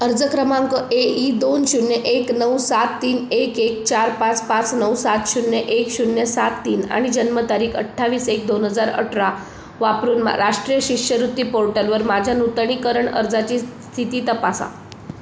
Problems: constant background noise